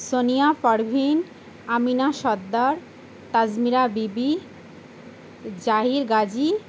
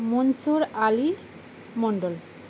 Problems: constant background noise